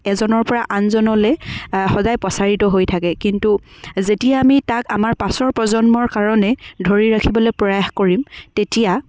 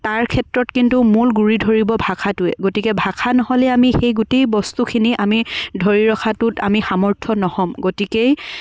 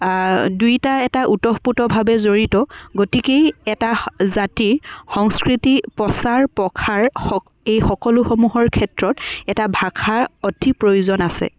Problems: background sounds at intervals, background conversations at intervals